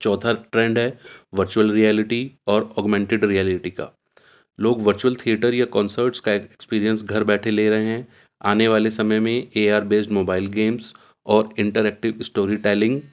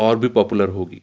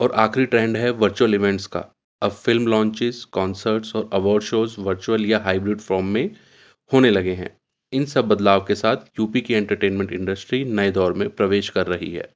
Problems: constant background noise